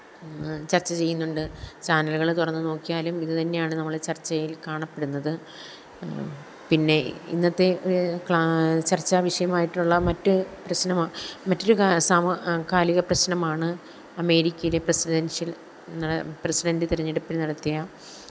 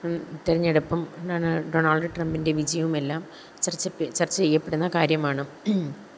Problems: none marked